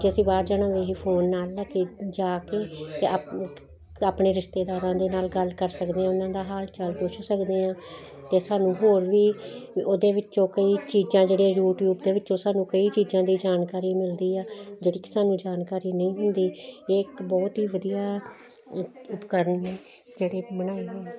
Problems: constant background noise